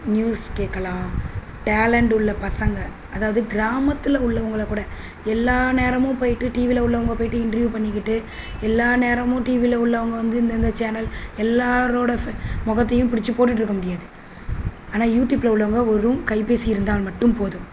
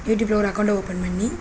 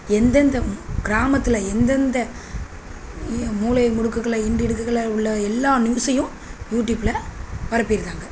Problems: constant background noise